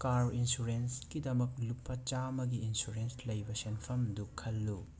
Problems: background sounds at intervals